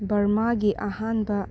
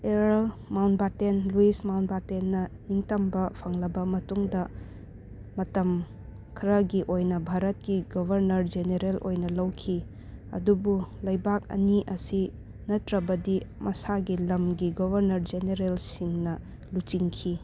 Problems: background sounds at intervals, background conversations at intervals